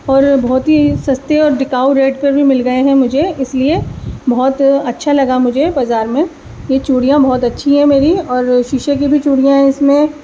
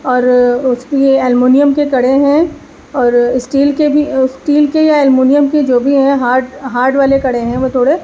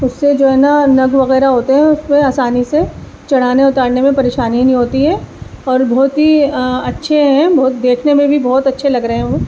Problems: constant background noise